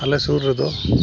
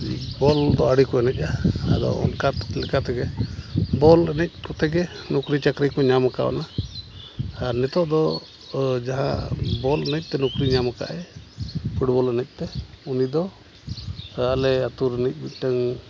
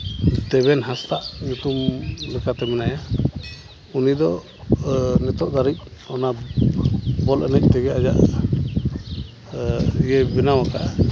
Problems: background sounds at intervals